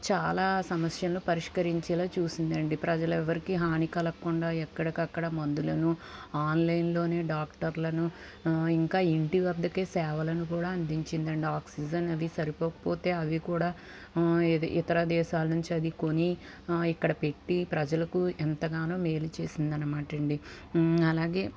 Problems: constant background noise